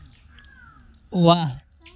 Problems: constant background noise